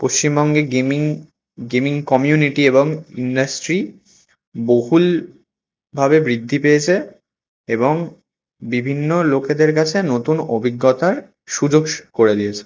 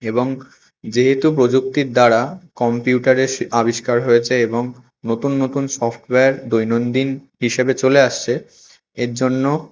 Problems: constant background noise